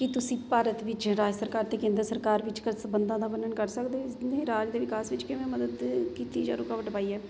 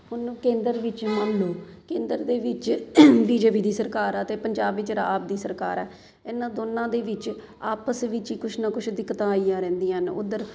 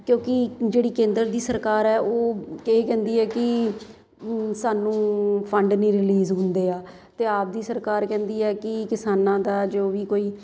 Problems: constant background noise